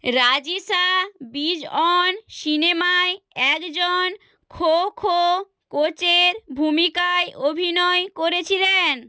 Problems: none marked